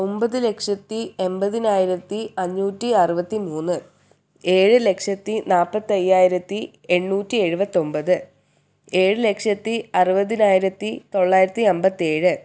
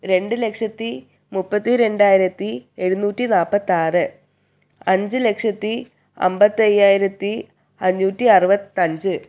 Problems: none marked